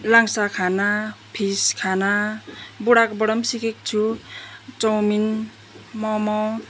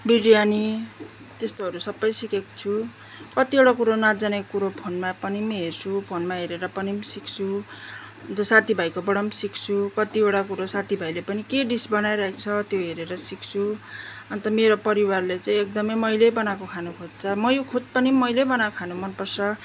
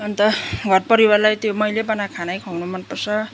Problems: background sounds at intervals